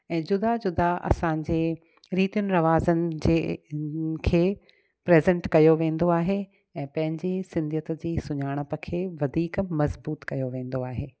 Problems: none marked